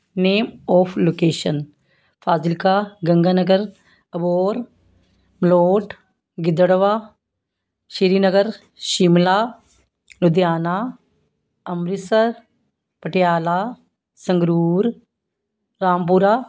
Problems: background sounds at intervals